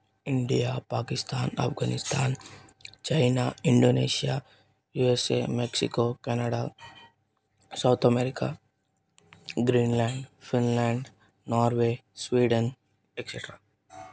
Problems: none marked